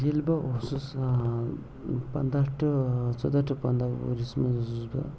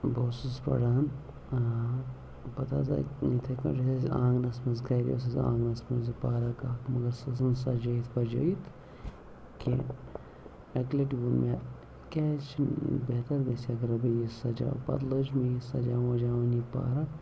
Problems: low volume